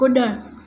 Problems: constant background noise